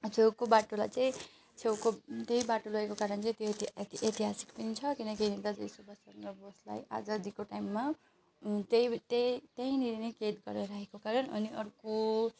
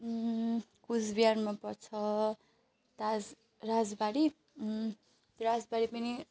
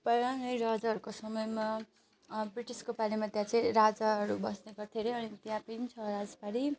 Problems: background sounds at intervals